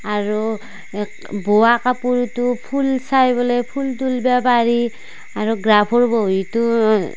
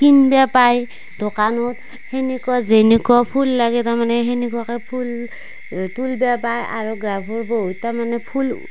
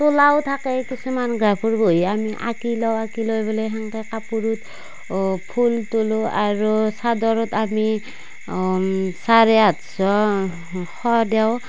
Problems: constant background noise